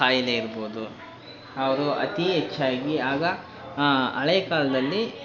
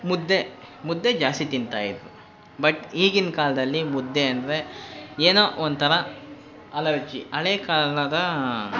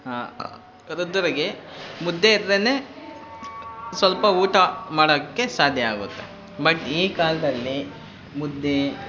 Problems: constant background noise